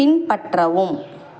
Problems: constant background noise